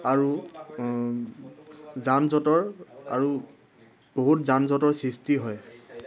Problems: background sounds at intervals